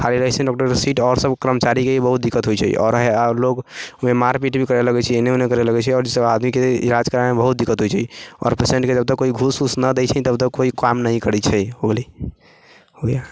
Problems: background conversations at intervals